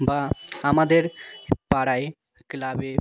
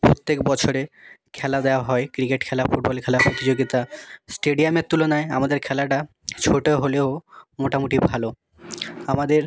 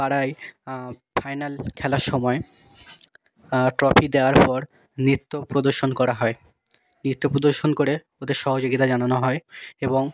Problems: background sounds at intervals